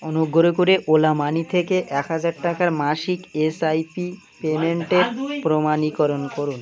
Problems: constant background noise, continuous background conversations